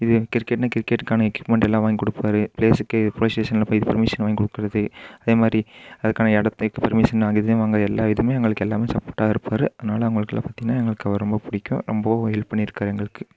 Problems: constant background noise